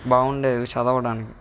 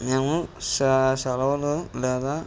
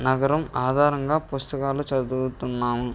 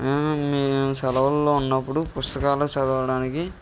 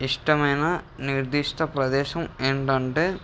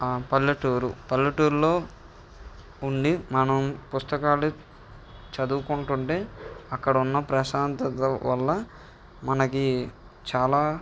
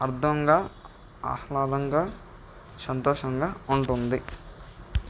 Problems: background sounds at intervals